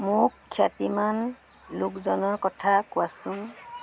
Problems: constant background noise